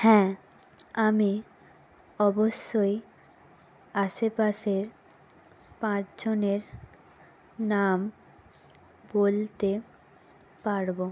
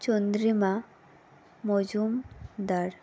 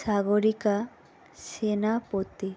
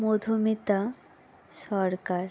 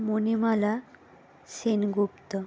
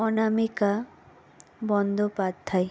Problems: background sounds at intervals